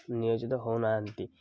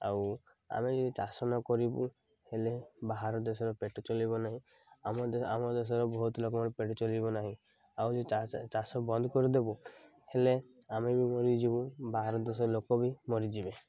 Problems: none marked